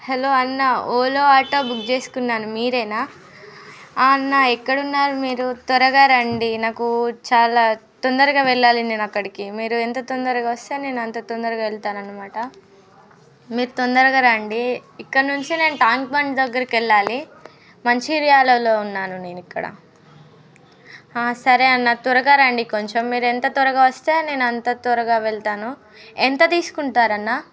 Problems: background sounds at intervals, background conversations at intervals